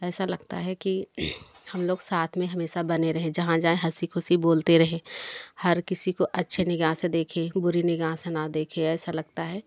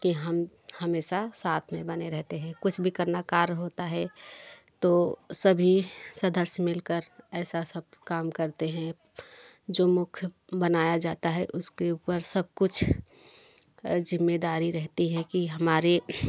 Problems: none marked